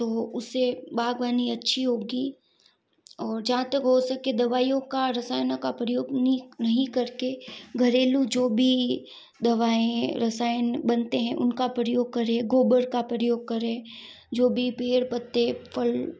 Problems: none marked